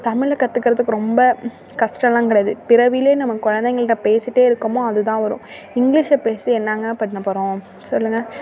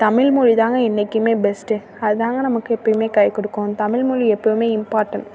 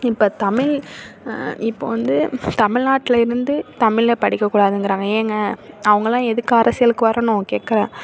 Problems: none marked